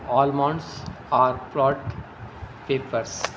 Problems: constant background noise